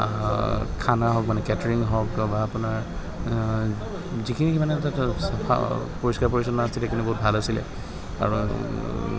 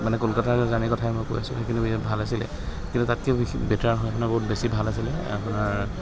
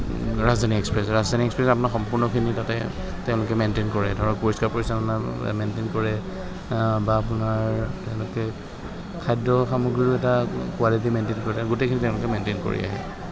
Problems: constant background noise